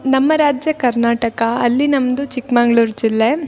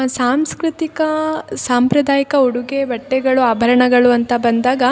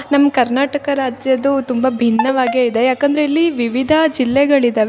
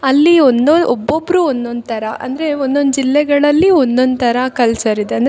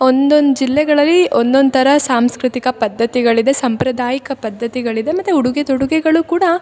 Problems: none marked